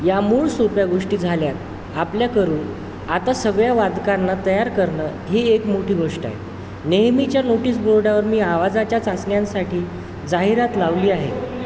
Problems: constant background noise, background conversations at intervals